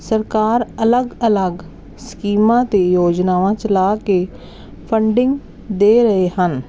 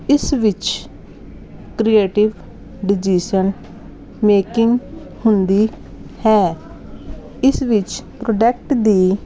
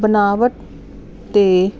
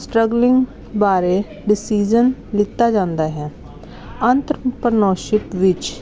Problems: none marked